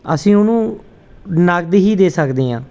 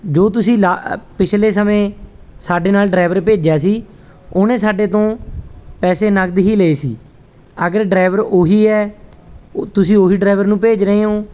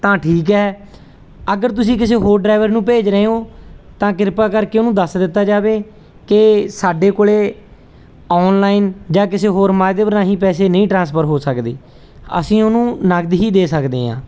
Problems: none marked